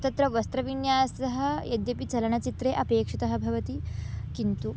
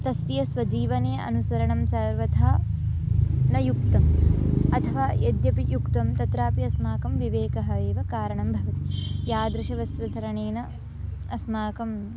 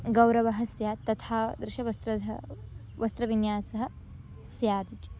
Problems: constant background noise